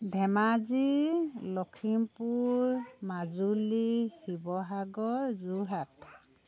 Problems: continuous background conversations